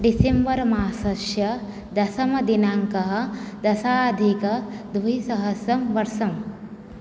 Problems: none marked